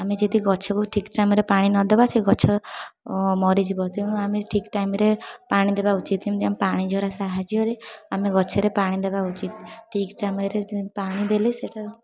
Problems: continuous background conversations